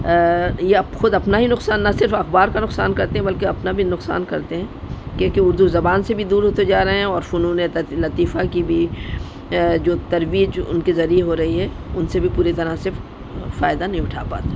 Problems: constant background noise